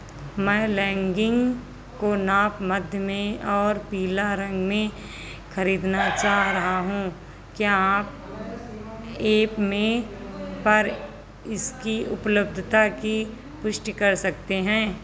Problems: constant background noise